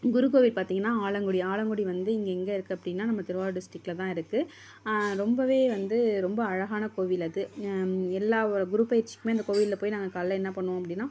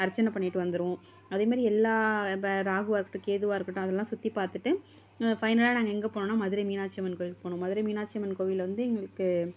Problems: none marked